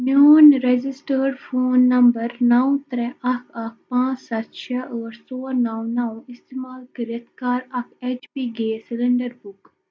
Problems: none marked